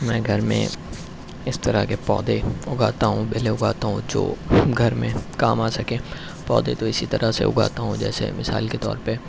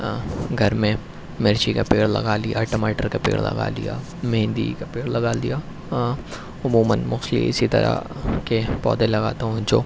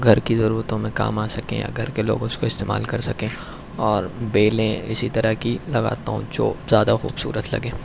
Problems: none marked